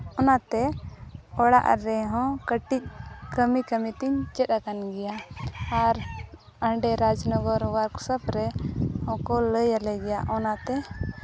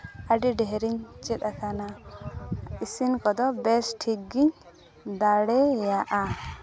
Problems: background conversations at intervals